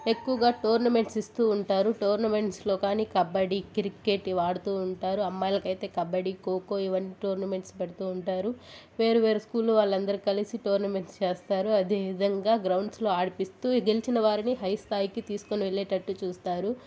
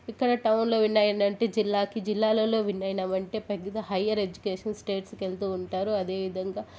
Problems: constant background noise, background conversations at intervals